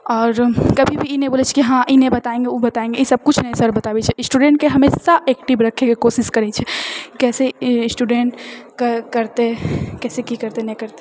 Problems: none marked